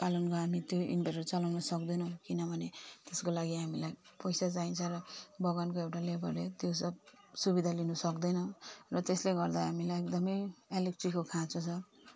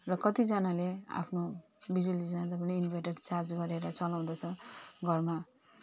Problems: none marked